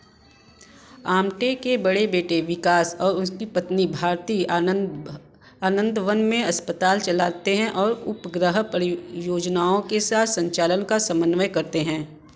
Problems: constant background noise